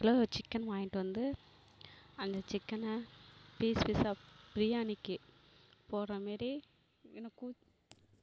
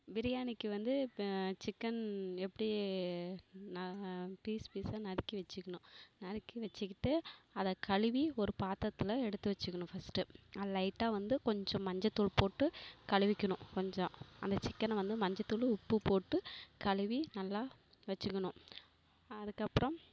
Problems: background sounds at intervals